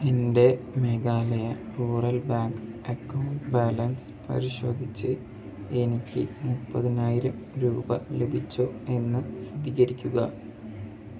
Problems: background sounds at intervals